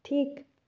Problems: none marked